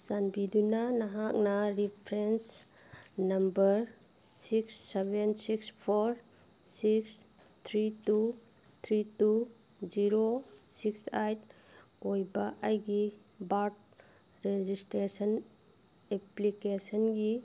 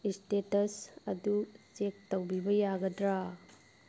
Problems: constant background noise